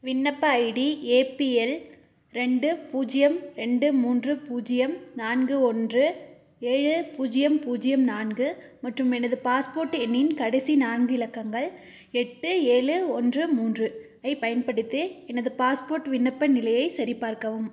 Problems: none marked